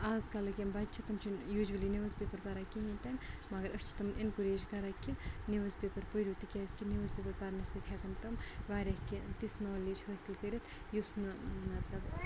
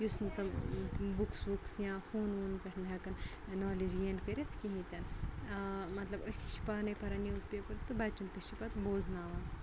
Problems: constant background noise, low volume